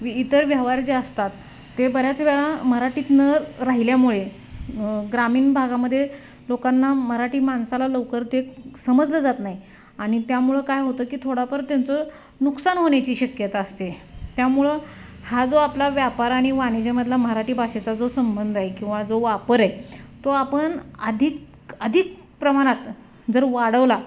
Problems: constant background noise